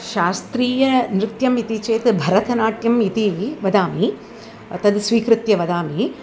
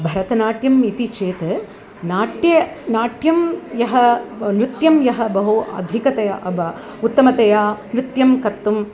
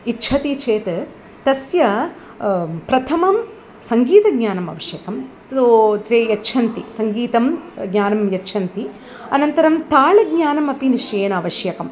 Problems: background sounds at intervals